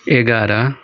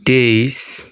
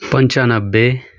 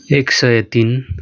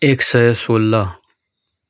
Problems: none marked